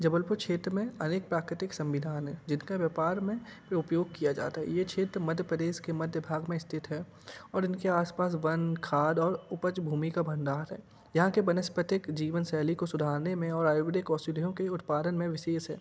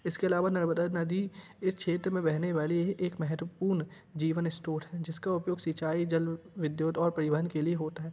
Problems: background sounds at intervals